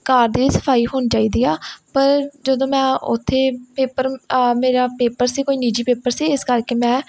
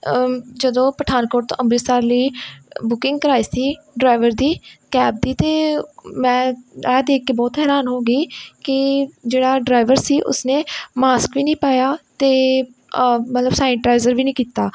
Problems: none marked